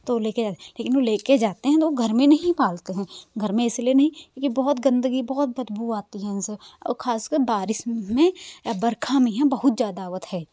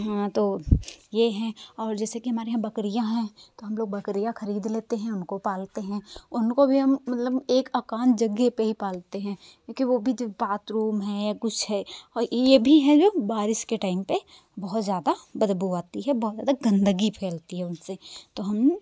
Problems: none marked